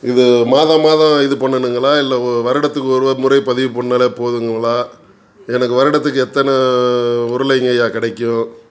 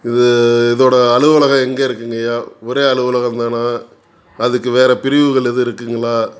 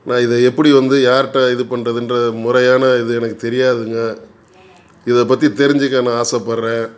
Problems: none marked